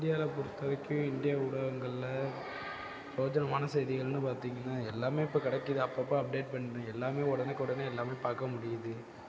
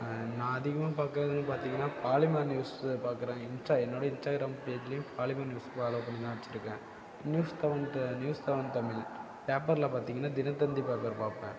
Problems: background sounds at intervals